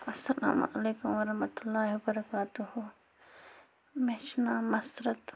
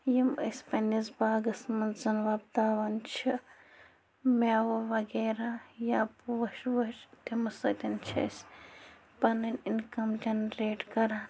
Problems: constant background noise